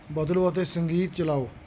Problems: none marked